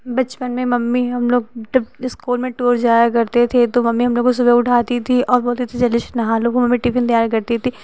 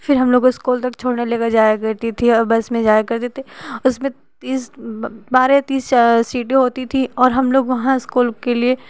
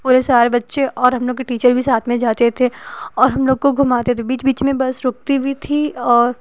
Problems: constant background noise